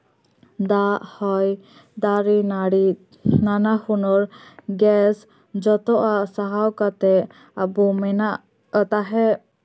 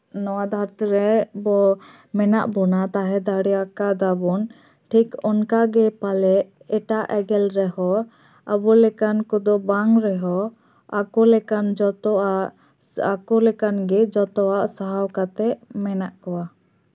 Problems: none marked